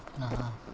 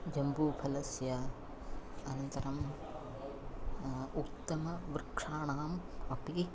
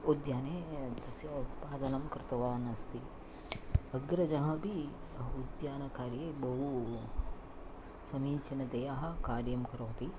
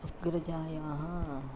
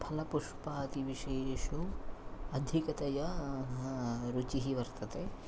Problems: background sounds at intervals